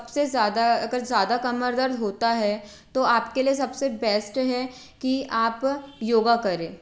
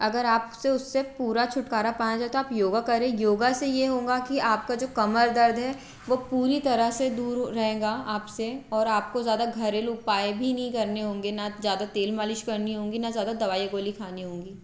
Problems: constant background noise